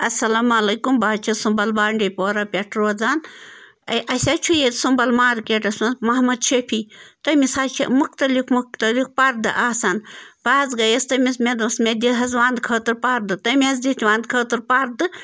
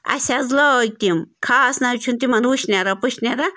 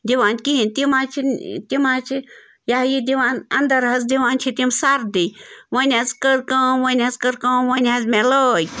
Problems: constant background noise